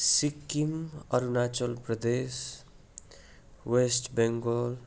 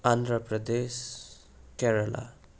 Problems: constant background noise